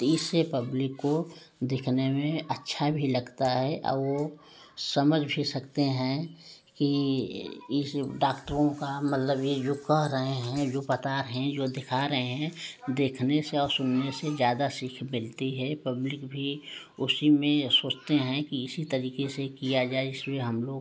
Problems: none marked